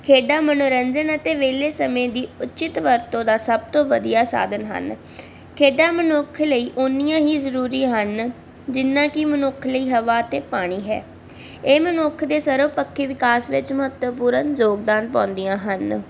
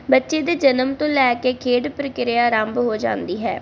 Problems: constant background noise